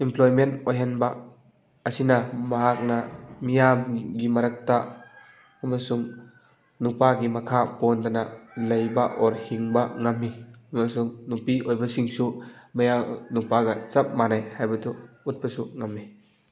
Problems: constant background noise